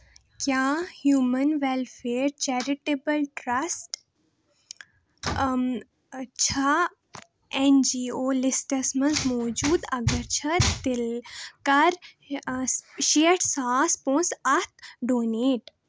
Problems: constant background noise